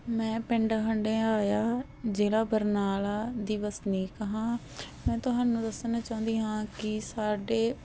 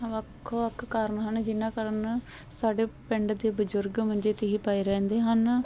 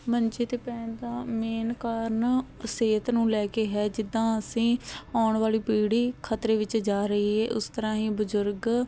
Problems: constant background noise